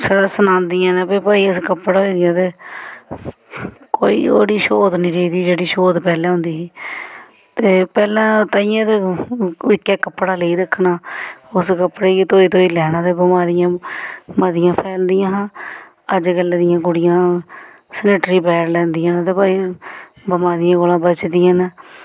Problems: background sounds at intervals